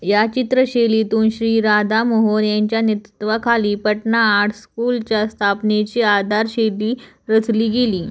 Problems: background sounds at intervals